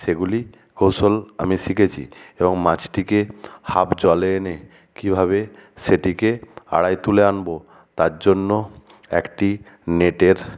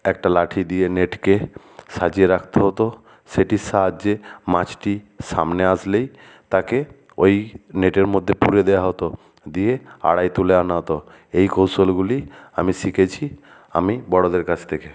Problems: none marked